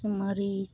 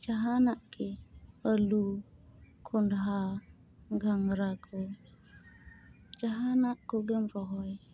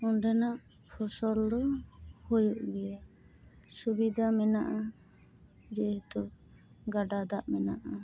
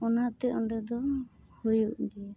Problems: background sounds at intervals